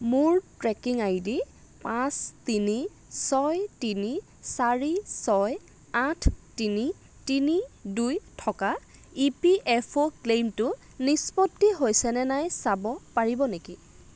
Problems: constant background noise